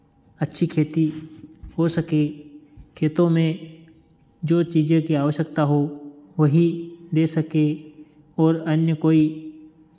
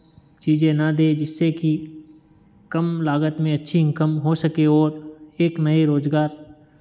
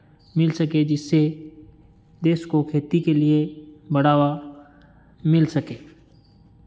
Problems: background sounds at intervals